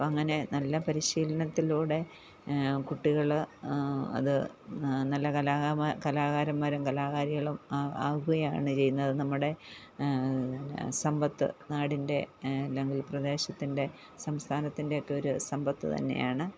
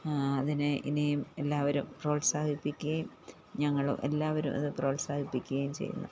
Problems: none marked